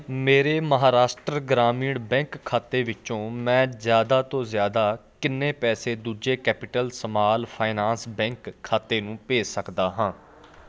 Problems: constant background noise, background conversations at intervals